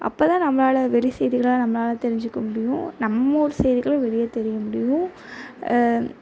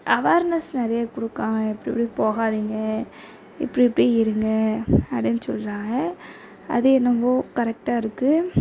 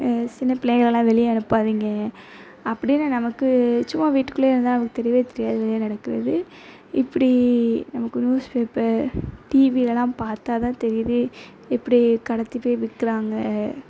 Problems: background sounds at intervals